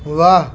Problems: none marked